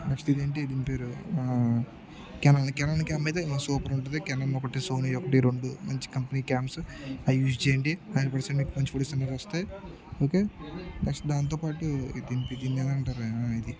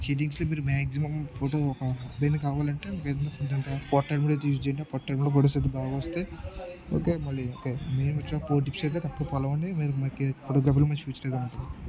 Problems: continuous background conversations, low volume